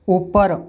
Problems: none marked